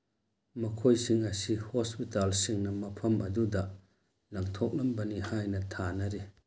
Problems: none marked